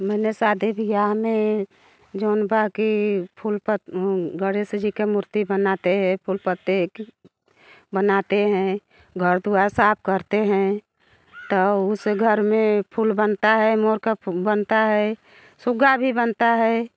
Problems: none marked